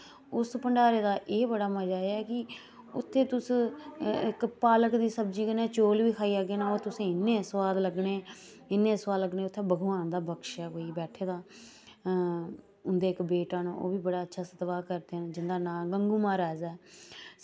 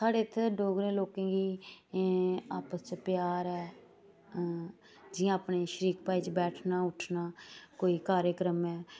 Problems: none marked